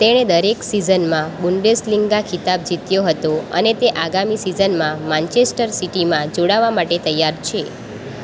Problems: constant background noise